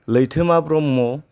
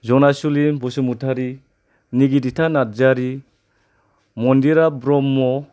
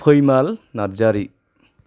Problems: none marked